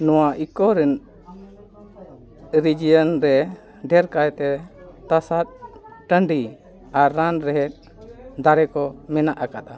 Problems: continuous background conversations